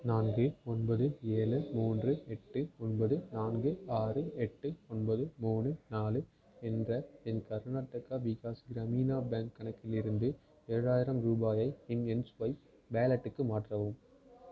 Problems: continuous background conversations